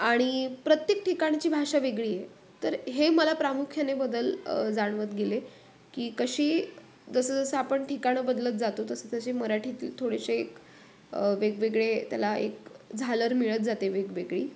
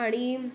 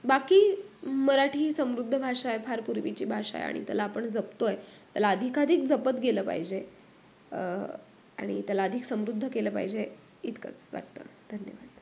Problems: none marked